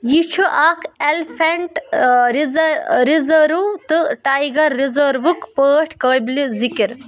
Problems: background sounds at intervals, background conversations at intervals